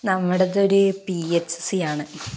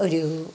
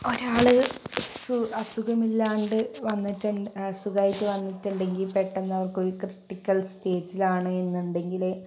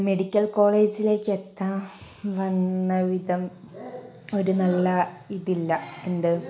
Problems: none marked